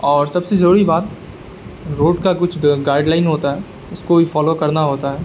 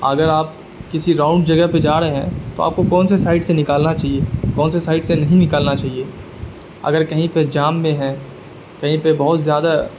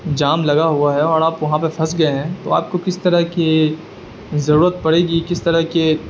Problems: constant background noise